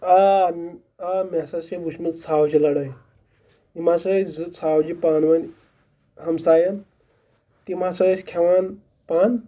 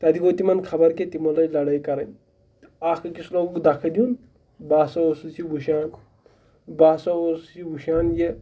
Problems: background sounds at intervals